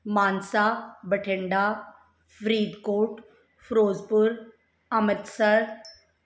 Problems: background sounds at intervals